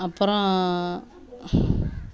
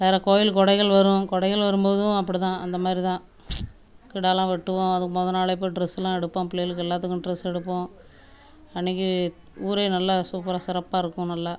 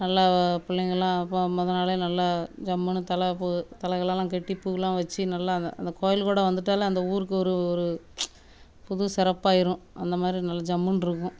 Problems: background sounds at intervals, background conversations at intervals